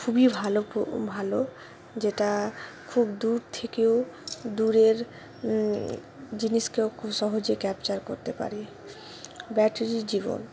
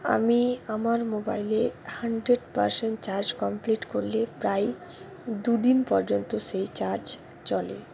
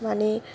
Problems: background sounds at intervals